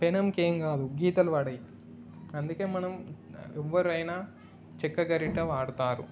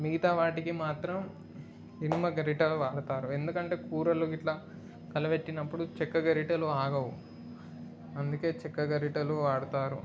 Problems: background sounds at intervals